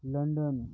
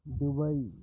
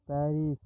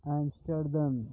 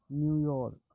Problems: background sounds at intervals, low volume